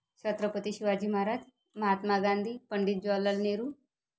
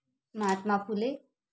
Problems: none marked